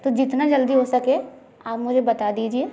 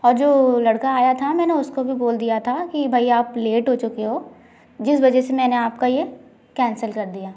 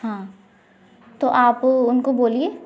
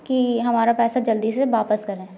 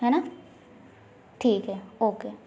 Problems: constant background noise